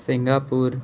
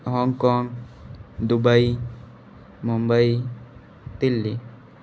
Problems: background sounds at intervals